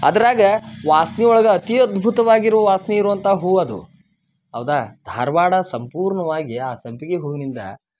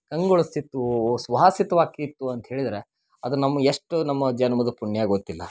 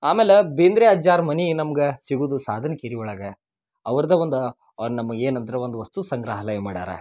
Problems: none marked